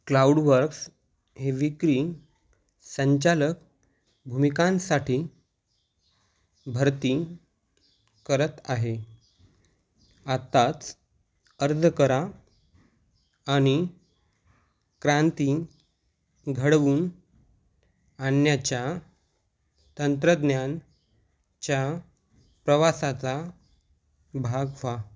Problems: background sounds at intervals